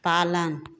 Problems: constant background noise